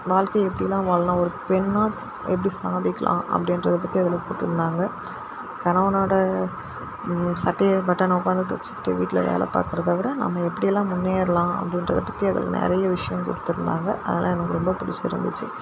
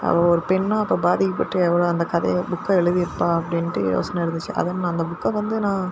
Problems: constant background noise